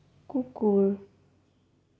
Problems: low volume